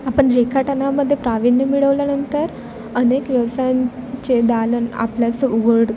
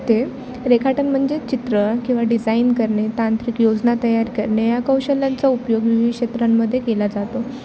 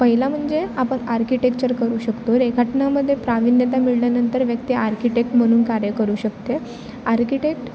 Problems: constant background noise, continuous background conversations